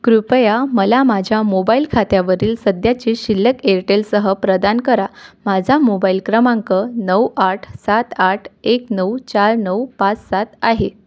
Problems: none marked